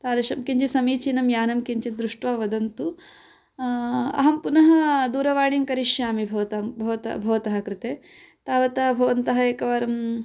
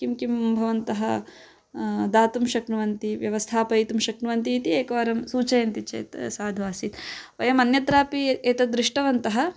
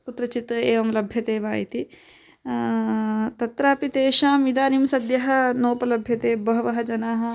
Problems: constant background noise